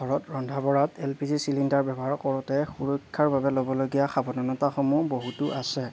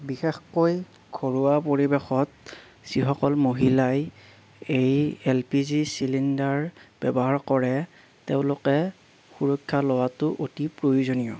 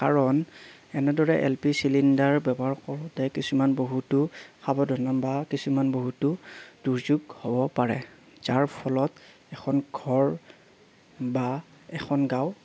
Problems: none marked